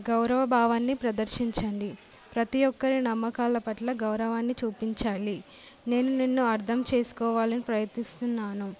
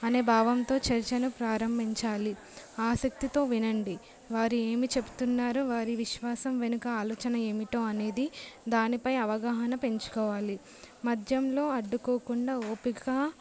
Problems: none marked